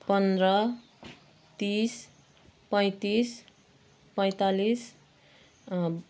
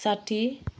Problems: background sounds at intervals